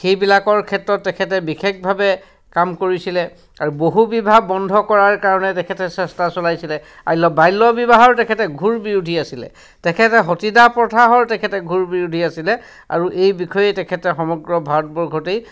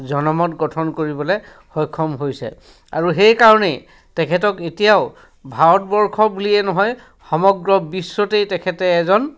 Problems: background sounds at intervals, background conversations at intervals